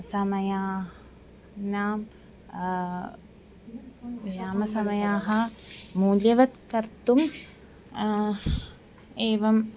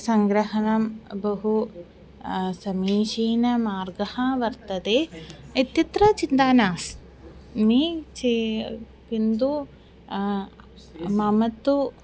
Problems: continuous background conversations